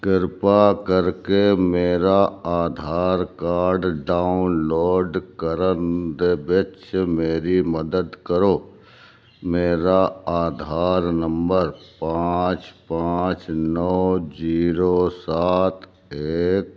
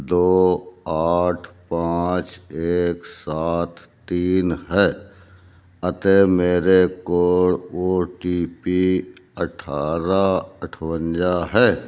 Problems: none marked